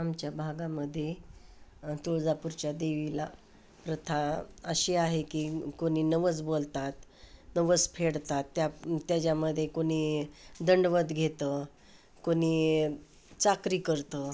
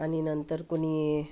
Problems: constant background noise, continuous background conversations